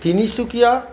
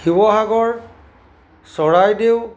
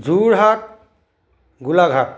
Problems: background sounds at intervals